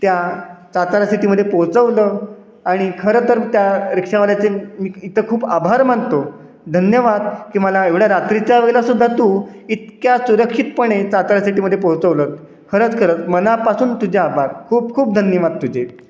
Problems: none marked